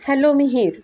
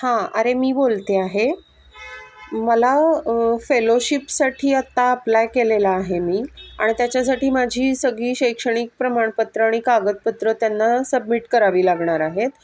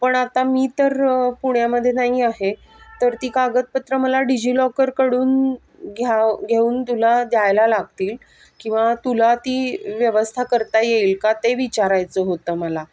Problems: none marked